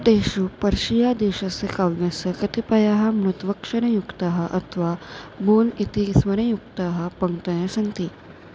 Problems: constant background noise